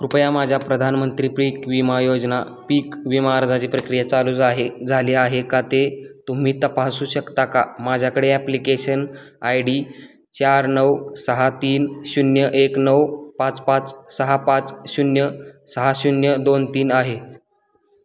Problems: constant background noise